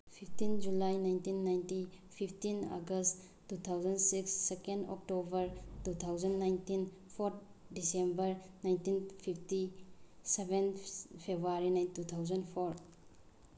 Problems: none marked